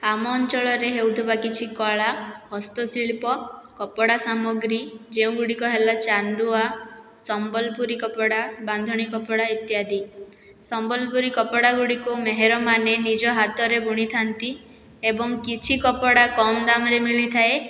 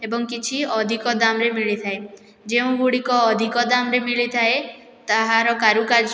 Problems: none marked